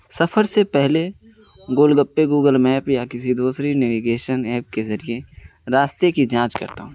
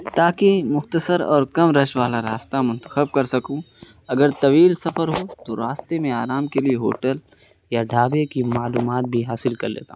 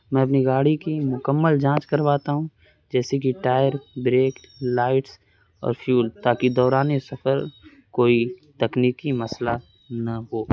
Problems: constant background noise